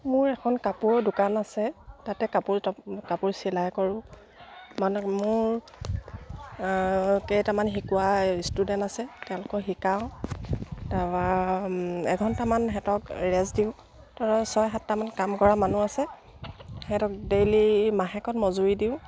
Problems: none marked